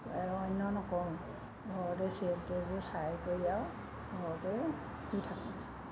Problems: constant background noise